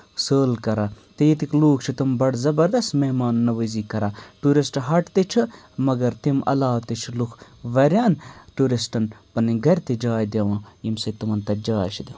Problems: none marked